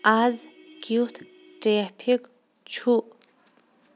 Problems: none marked